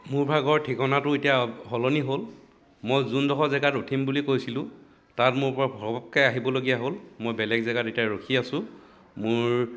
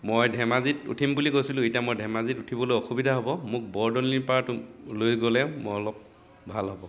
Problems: background sounds at intervals, continuous background conversations